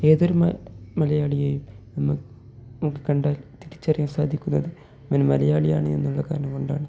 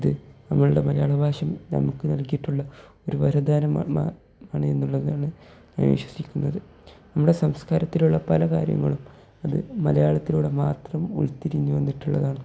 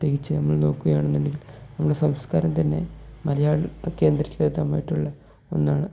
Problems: low volume